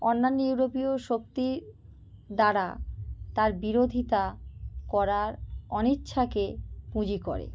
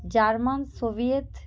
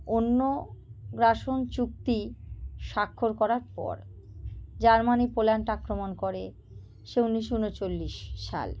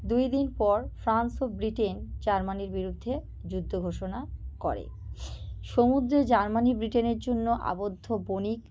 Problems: none marked